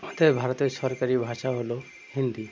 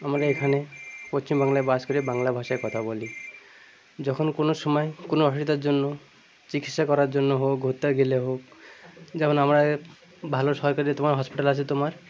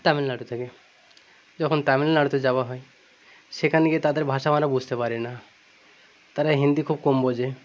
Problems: constant background noise, continuous background conversations